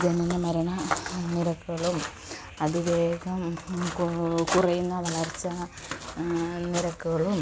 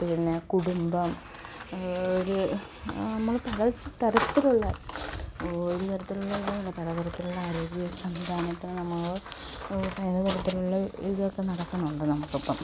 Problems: constant background noise, low volume